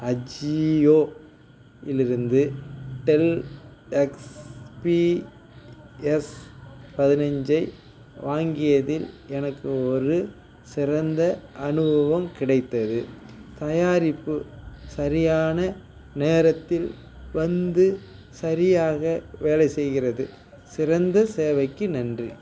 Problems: constant background noise, background conversations at intervals